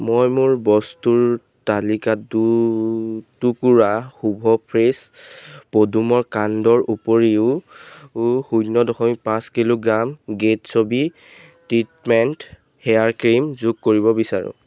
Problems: background sounds at intervals